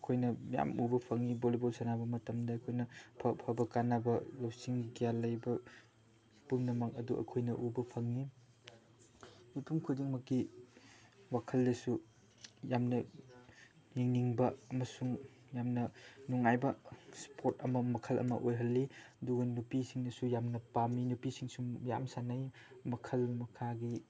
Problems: background sounds at intervals, background conversations at intervals